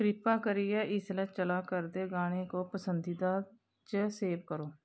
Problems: constant background noise